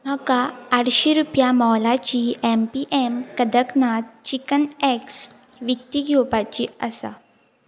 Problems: none marked